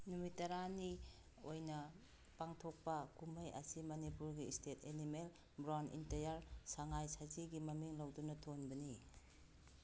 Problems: none marked